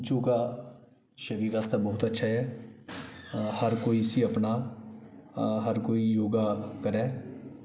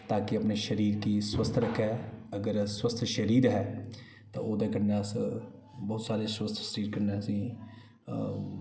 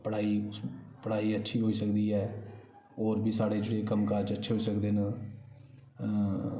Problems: background sounds at intervals, echo